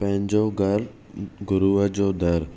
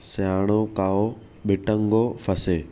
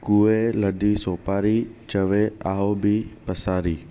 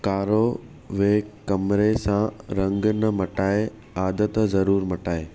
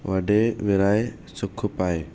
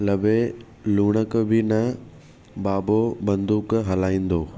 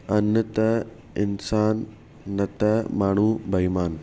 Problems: none marked